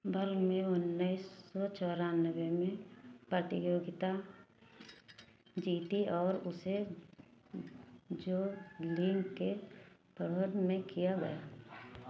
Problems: background sounds at intervals